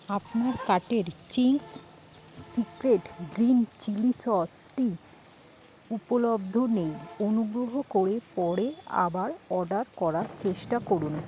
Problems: none marked